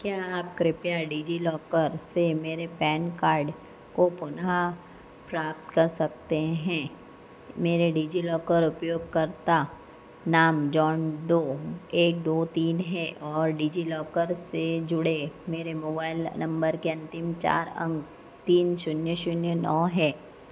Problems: constant background noise